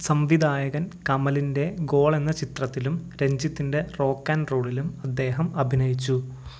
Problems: low volume